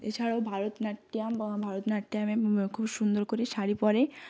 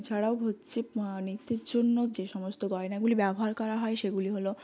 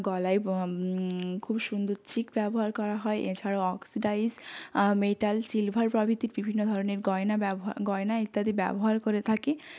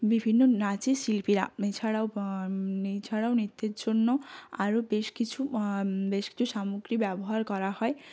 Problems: background sounds at intervals